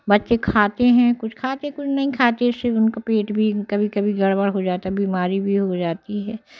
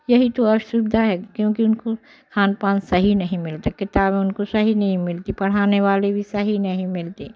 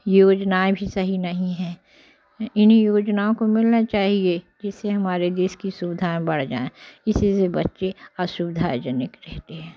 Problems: constant background noise